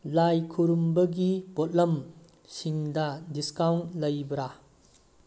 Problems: none marked